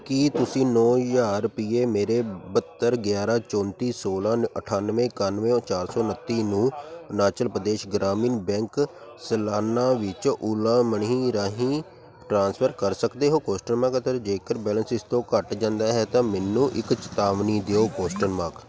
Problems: background sounds at intervals